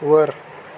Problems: constant background noise